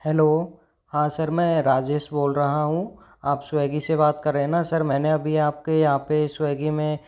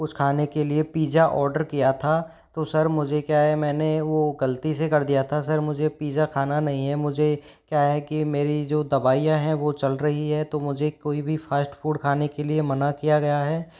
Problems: background sounds at intervals